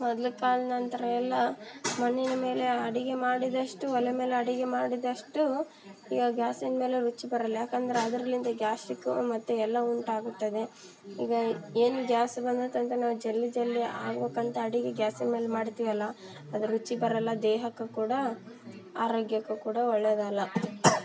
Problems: background sounds at intervals